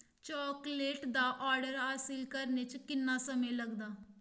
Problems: none marked